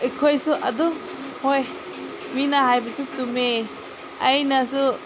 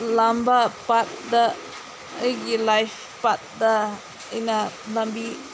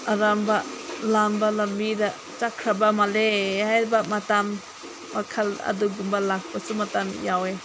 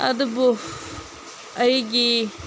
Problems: none marked